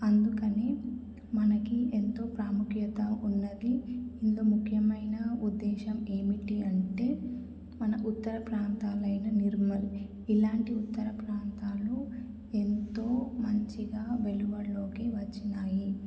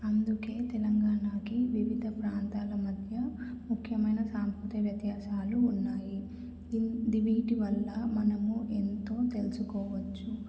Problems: low volume